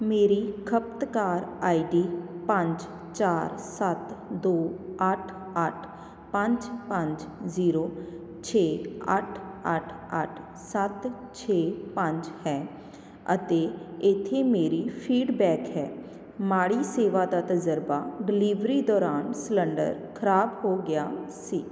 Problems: none marked